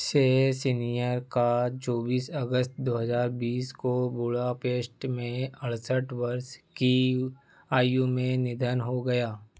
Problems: constant background noise